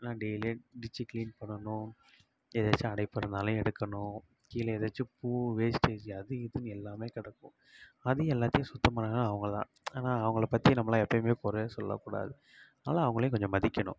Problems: low volume